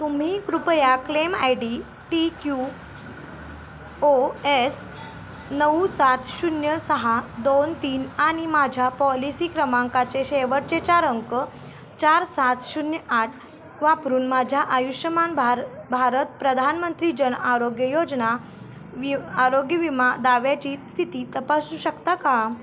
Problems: constant background noise, continuous background conversations